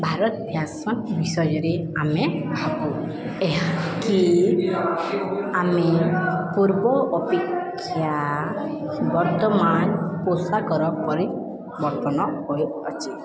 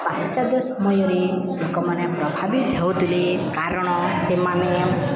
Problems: constant background noise, continuous background conversations